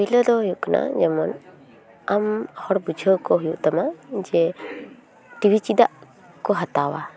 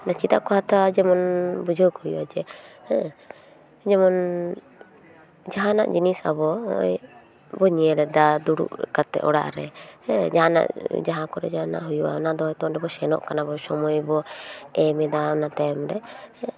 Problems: continuous background conversations